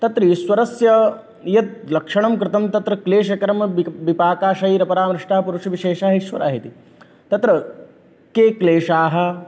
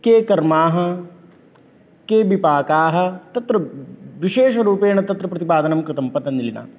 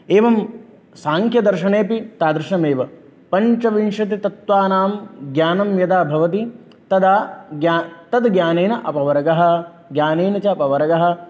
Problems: none marked